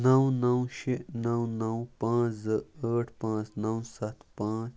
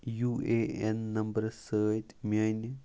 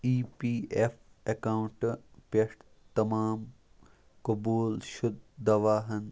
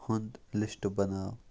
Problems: background sounds at intervals